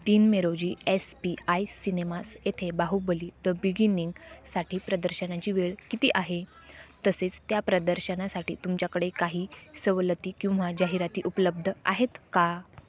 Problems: none marked